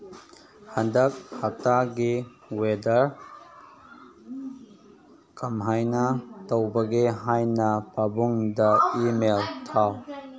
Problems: background conversations at intervals